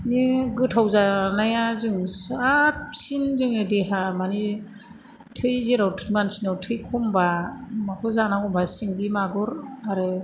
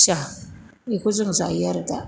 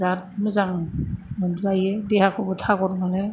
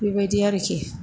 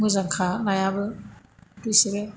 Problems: constant background noise